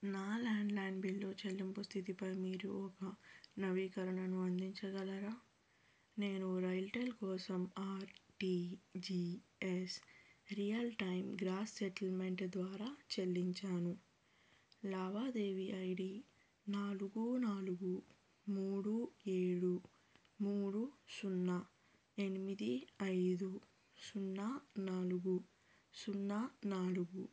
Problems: low volume